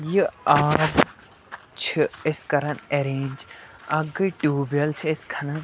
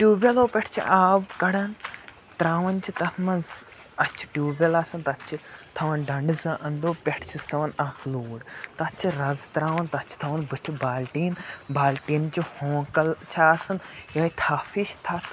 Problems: constant background noise